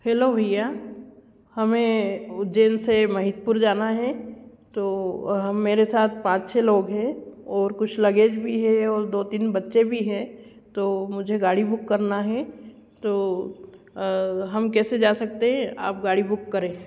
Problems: none marked